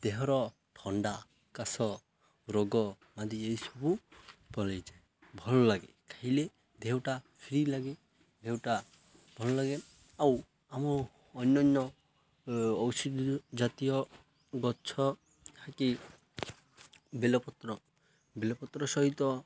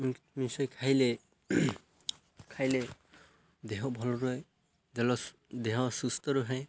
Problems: none marked